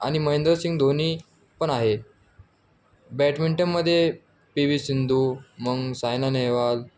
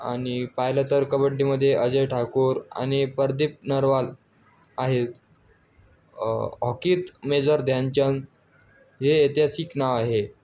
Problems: none marked